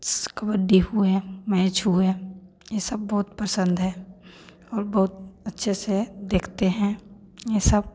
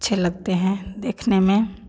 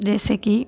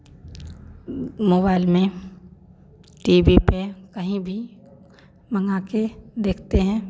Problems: none marked